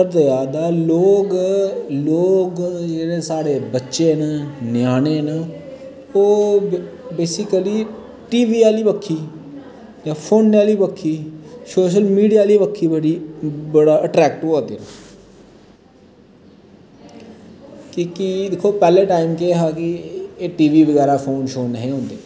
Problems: constant background noise